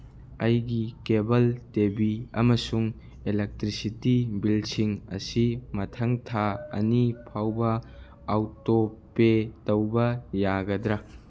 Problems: none marked